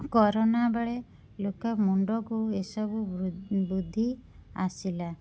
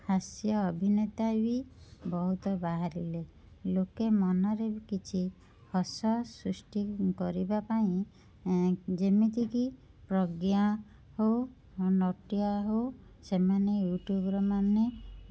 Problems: constant background noise